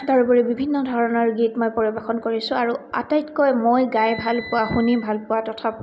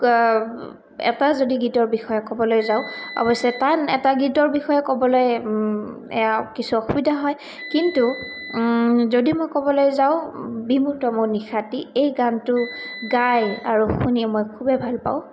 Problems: none marked